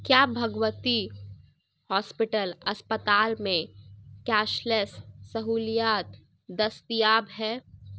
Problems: none marked